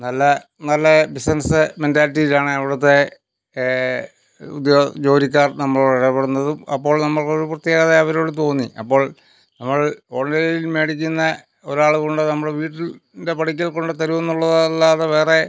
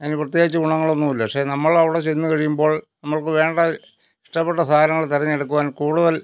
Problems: none marked